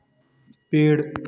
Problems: constant background noise